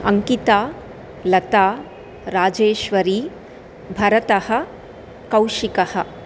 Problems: constant background noise